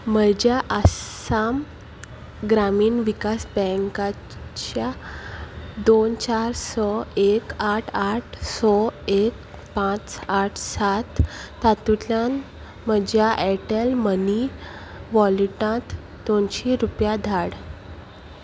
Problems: none marked